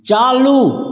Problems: constant background noise